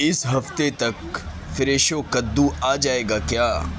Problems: constant background noise